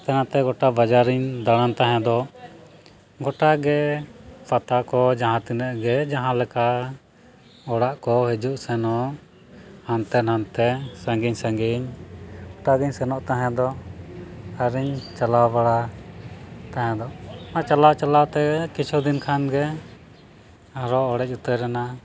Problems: background sounds at intervals